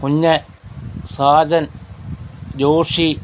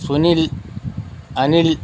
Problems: background sounds at intervals